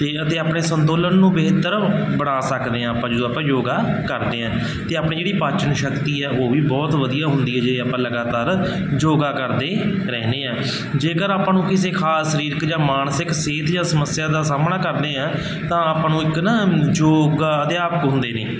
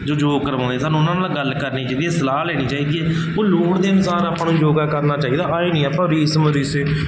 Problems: none marked